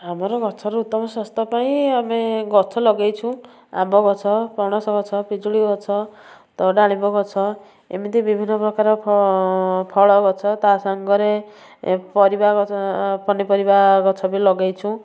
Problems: none marked